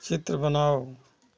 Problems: none marked